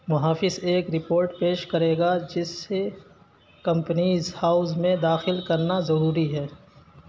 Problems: constant background noise, continuous background conversations